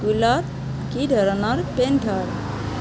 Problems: constant background noise